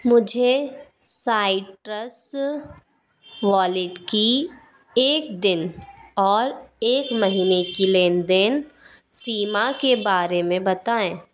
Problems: constant background noise